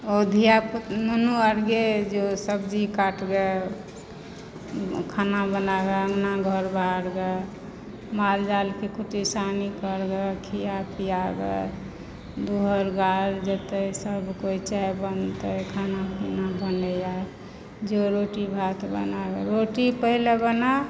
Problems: background sounds at intervals